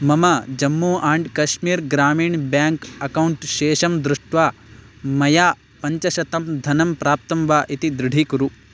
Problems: constant background noise